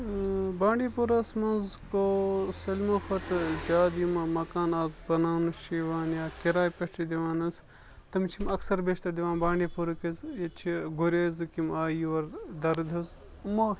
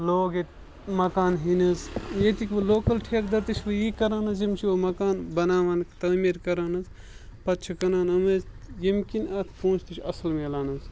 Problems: constant background noise